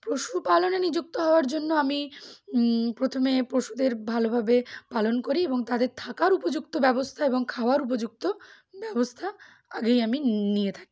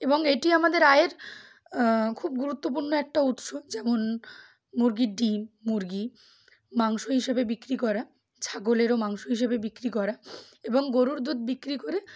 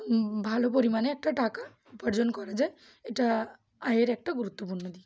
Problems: none marked